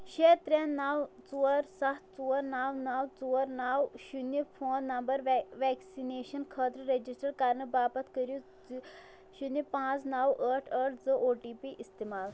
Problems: background sounds at intervals